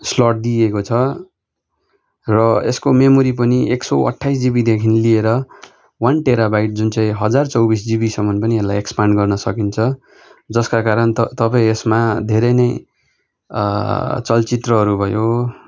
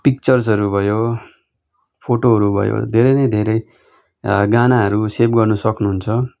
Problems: background sounds at intervals